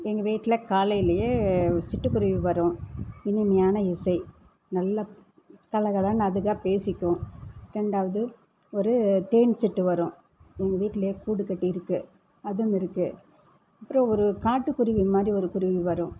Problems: none marked